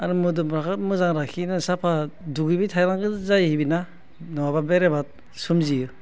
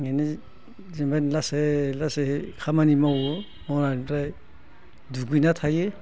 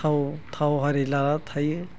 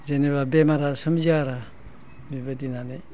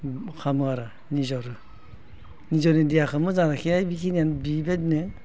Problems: constant background noise